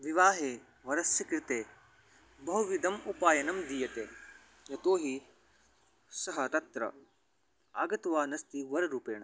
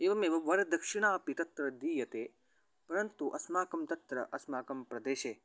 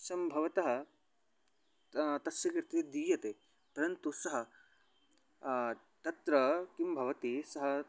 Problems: background sounds at intervals